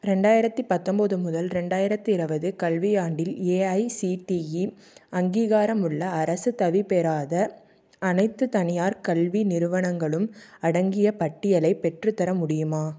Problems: none marked